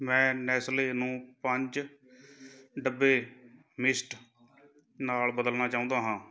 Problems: background conversations at intervals